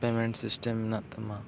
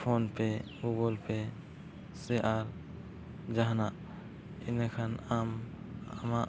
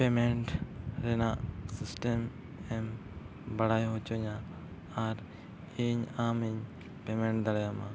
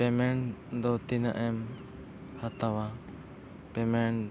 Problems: constant background noise, background conversations at intervals, low volume